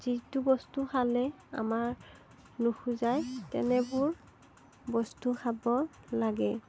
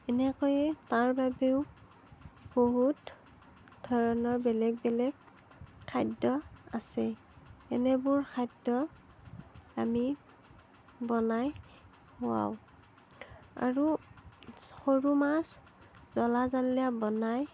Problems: none marked